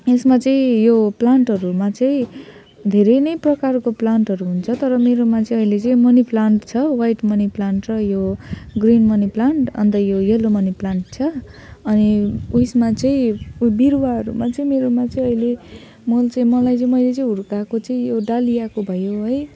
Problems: none marked